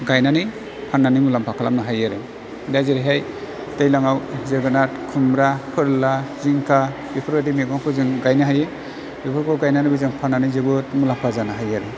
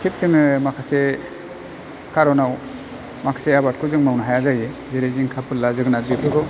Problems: constant background noise